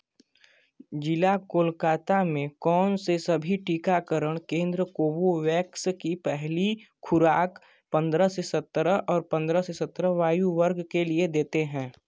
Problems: constant background noise